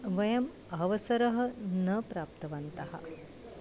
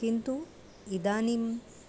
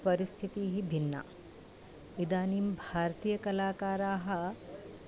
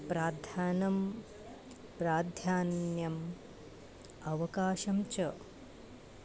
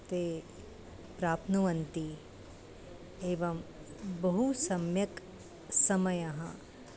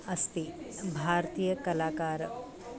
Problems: constant background noise